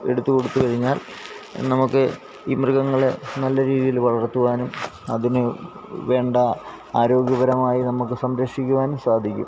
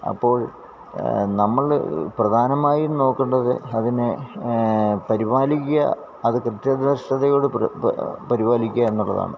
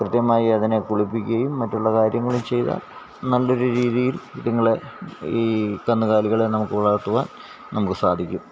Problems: background sounds at intervals